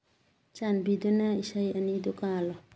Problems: low volume